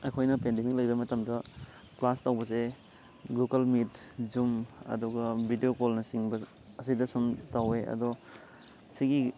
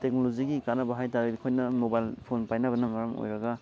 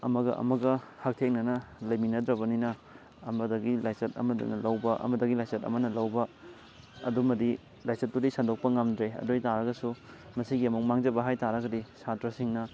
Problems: constant background noise